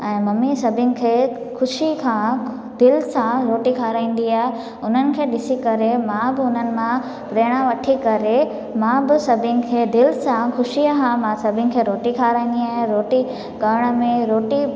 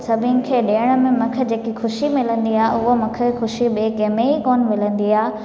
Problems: constant background noise, echo